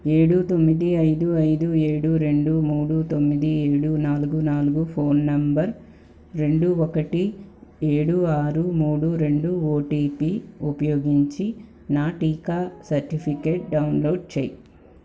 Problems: none marked